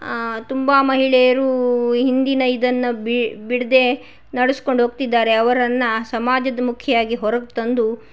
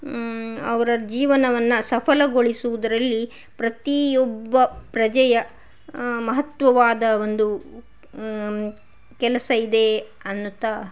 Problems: none marked